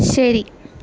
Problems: constant background noise